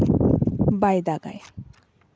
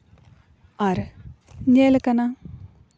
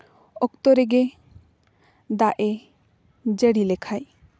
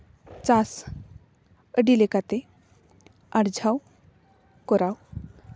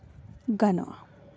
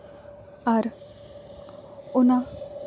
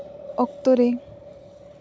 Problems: none marked